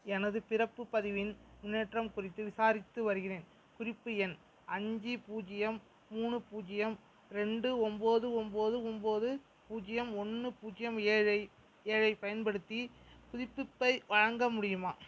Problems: none marked